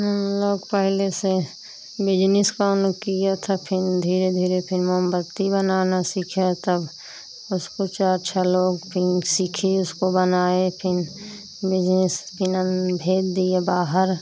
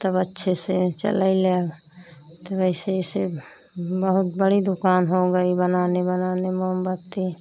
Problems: none marked